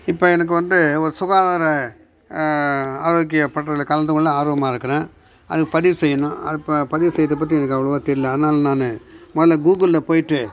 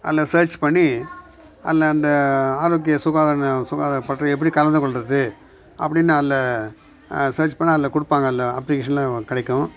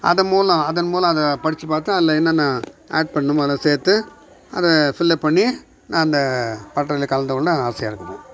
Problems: background sounds at intervals